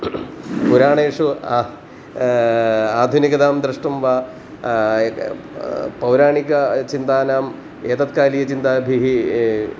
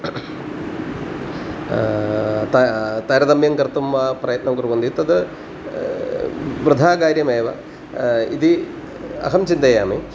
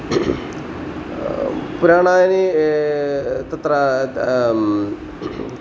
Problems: constant background noise